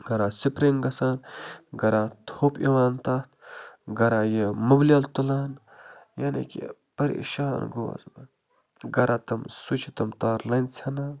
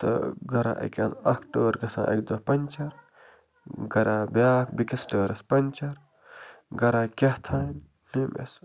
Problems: low volume